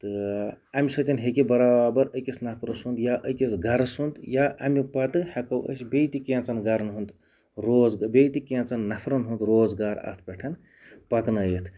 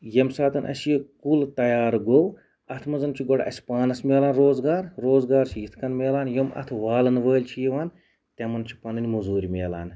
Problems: background sounds at intervals